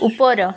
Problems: continuous background conversations